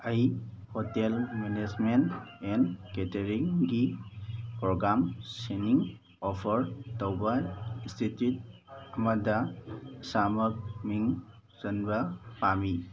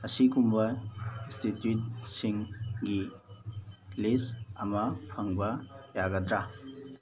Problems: constant background noise, background conversations at intervals